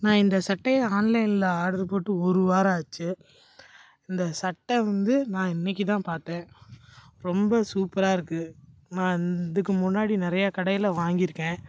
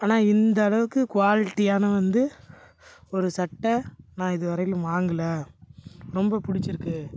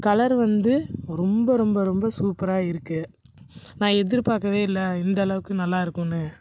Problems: background sounds at intervals